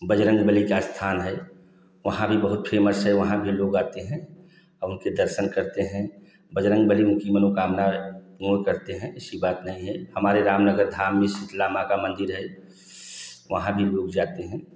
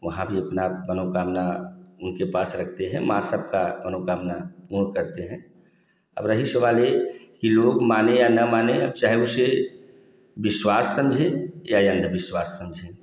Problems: constant background noise, echo